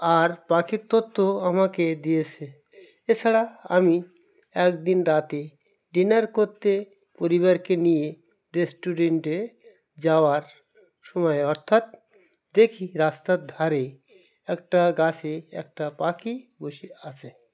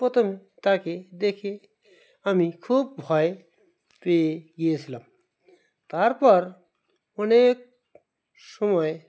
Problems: none marked